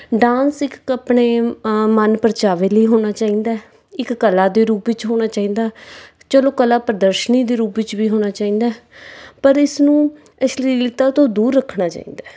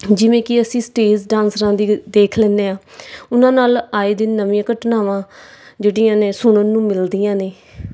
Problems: background sounds at intervals